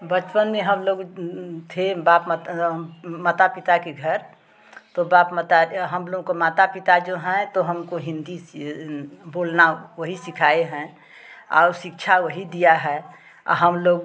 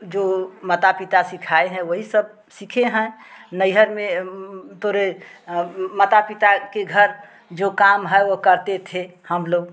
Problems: constant background noise, background conversations at intervals